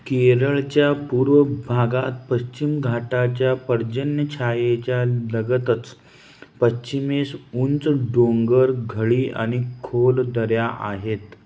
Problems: none marked